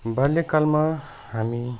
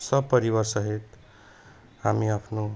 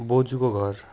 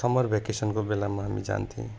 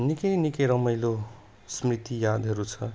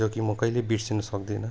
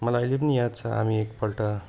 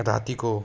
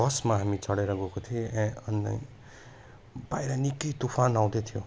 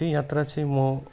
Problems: none marked